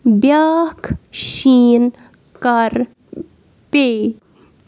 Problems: none marked